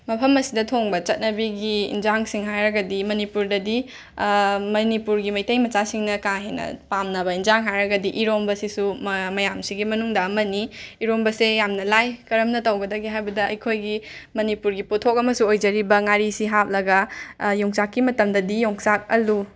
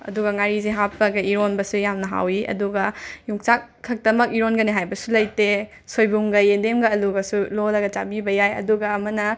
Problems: none marked